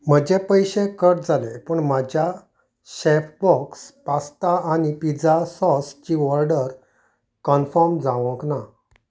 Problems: none marked